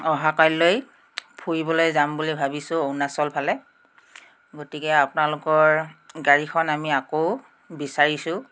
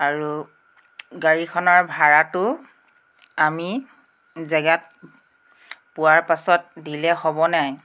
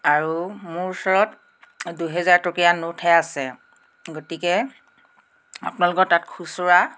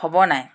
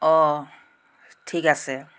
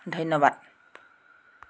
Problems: background sounds at intervals